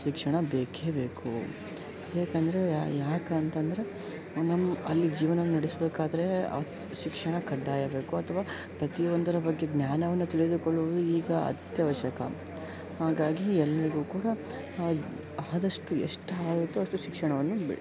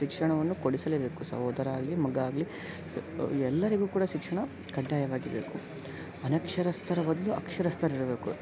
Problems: background sounds at intervals